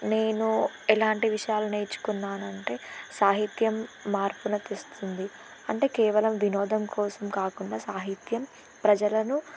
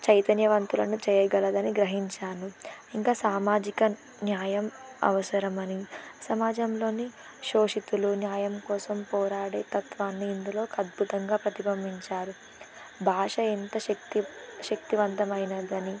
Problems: constant background noise